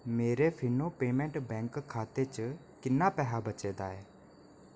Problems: none marked